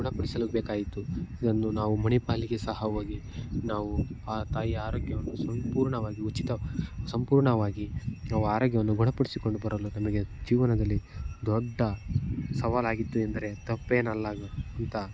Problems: none marked